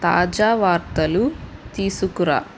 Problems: constant background noise